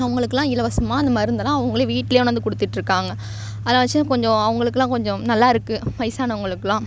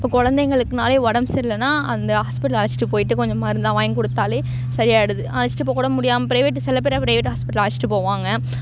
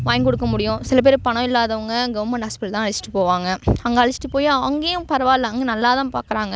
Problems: background sounds at intervals